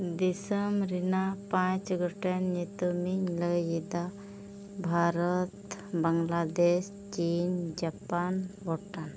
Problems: none marked